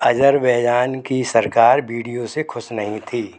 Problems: background sounds at intervals